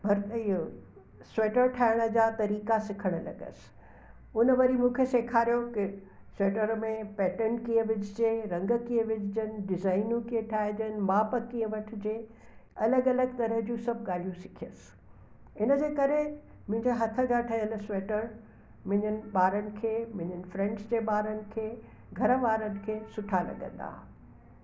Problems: constant background noise, echo